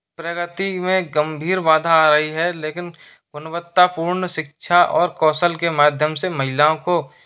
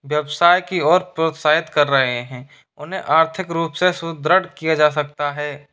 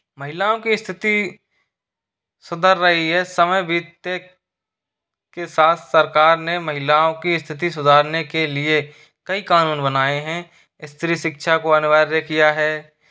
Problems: constant background noise